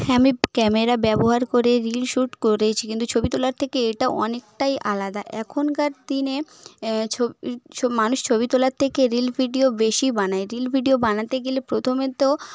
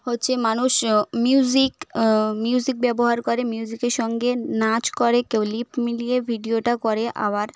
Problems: none marked